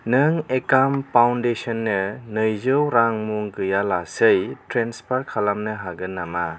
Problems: constant background noise